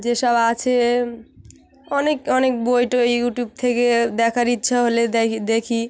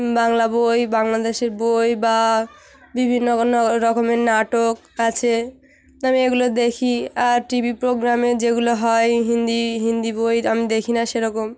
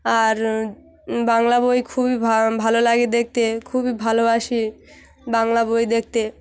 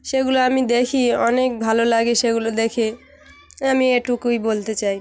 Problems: constant background noise, continuous background conversations